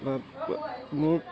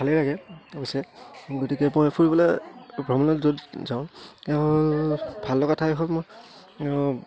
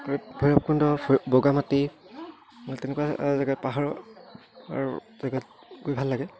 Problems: none marked